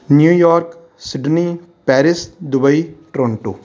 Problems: background conversations at intervals